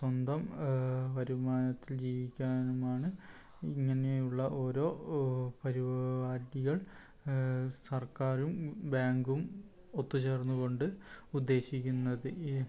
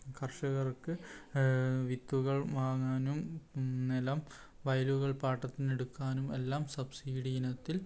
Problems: none marked